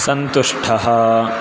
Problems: none marked